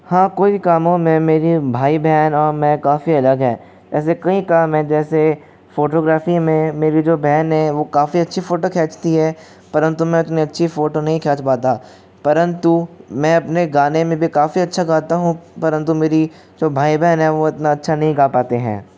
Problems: constant background noise